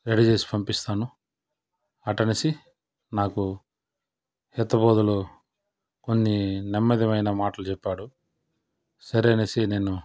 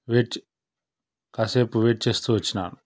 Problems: none marked